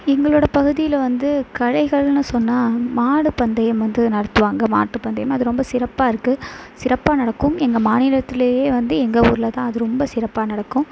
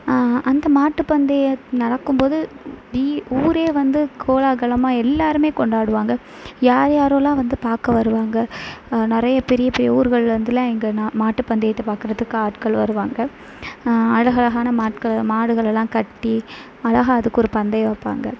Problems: background sounds at intervals